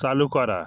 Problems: none marked